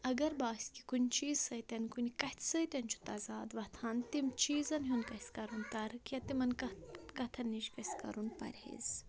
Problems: background conversations at intervals